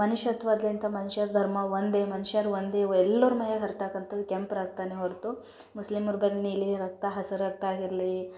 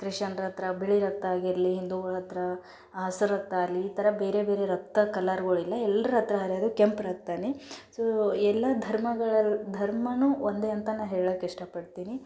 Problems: none marked